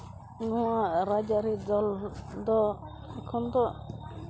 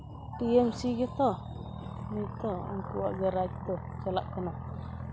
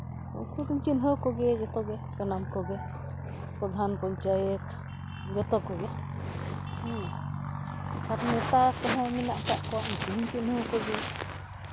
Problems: background sounds at intervals